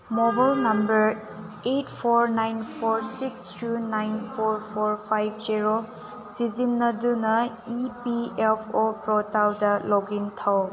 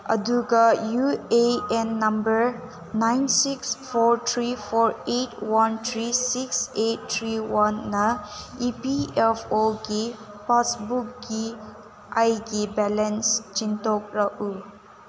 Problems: constant background noise